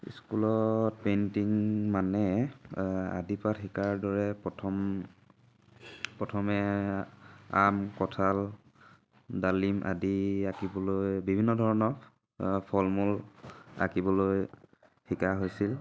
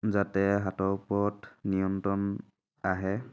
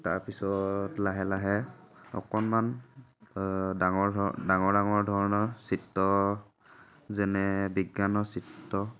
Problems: none marked